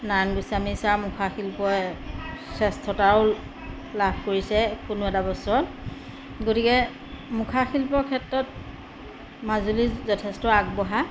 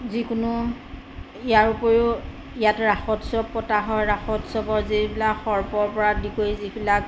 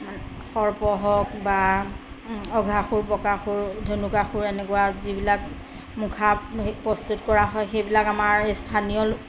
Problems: constant background noise